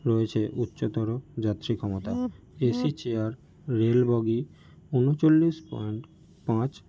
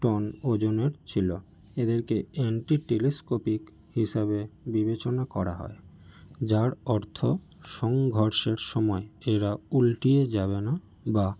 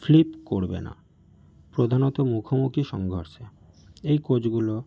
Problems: none marked